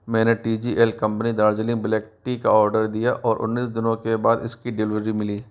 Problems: constant background noise